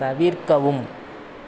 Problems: constant background noise